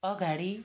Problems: none marked